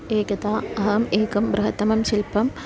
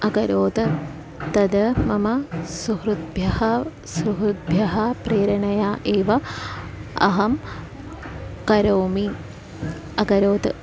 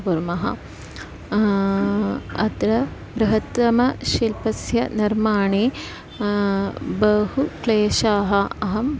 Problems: none marked